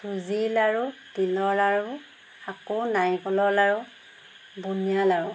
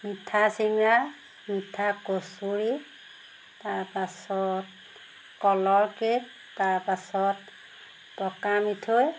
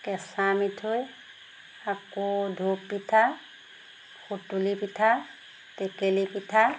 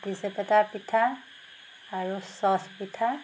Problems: constant background noise